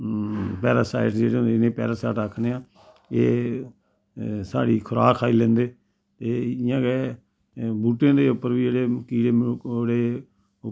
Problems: constant background noise